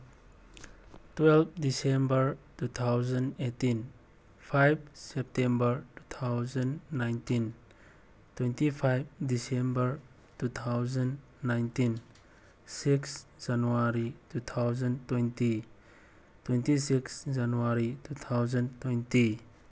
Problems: none marked